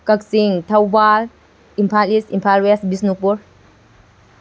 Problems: constant background noise